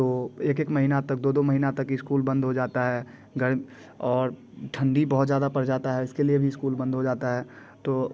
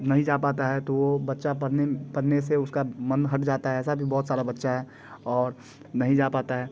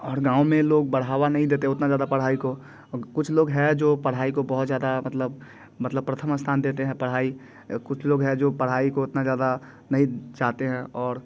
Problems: constant background noise, background conversations at intervals